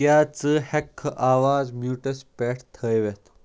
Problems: background sounds at intervals